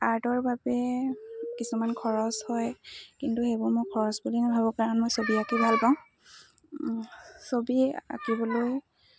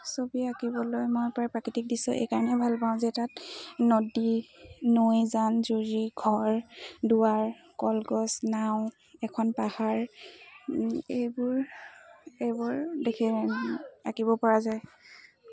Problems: constant background noise, background conversations at intervals